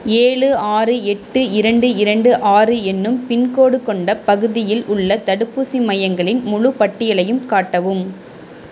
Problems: constant background noise